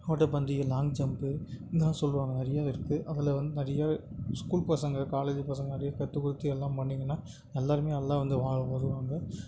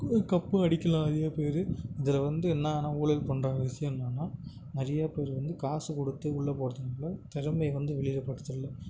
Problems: constant background noise, low volume